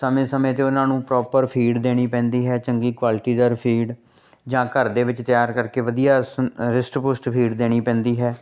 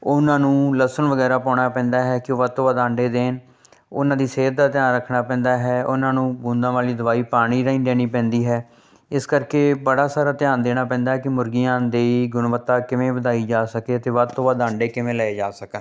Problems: none marked